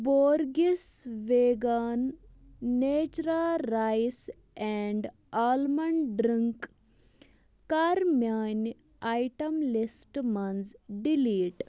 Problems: constant background noise